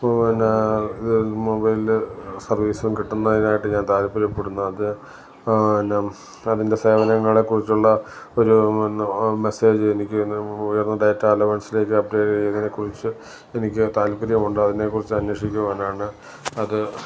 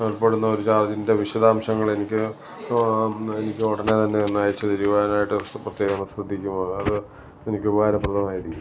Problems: background sounds at intervals, low volume